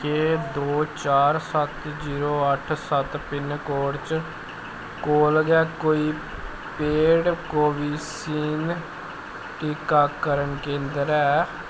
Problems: constant background noise